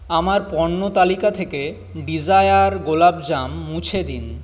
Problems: constant background noise